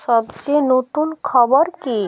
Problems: continuous background conversations